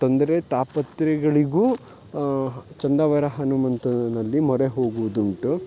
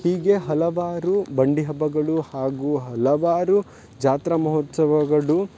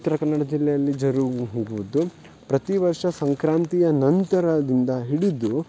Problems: none marked